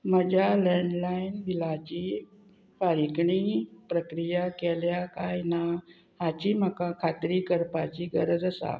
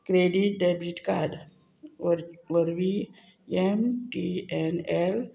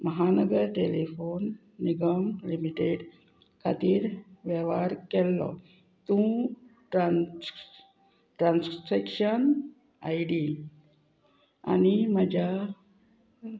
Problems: none marked